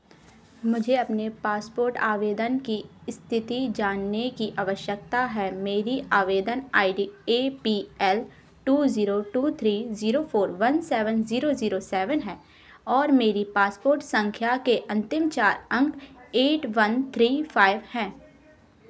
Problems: constant background noise